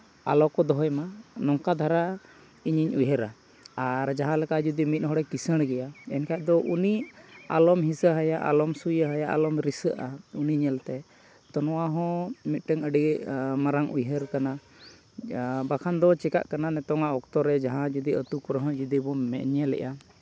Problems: none marked